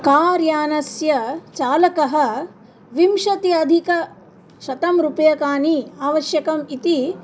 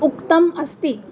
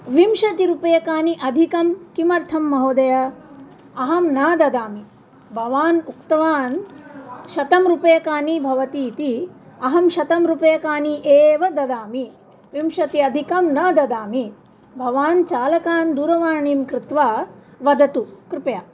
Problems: none marked